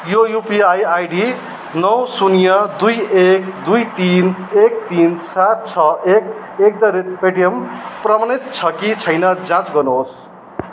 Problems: background sounds at intervals